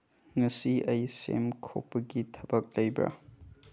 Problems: low volume